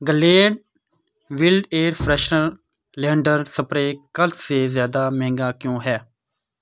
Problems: constant background noise